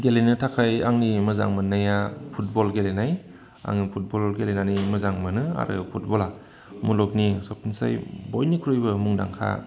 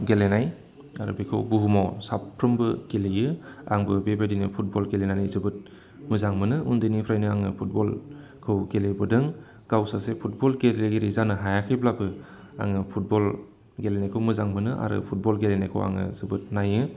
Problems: constant background noise